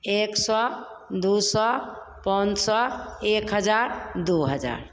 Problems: none marked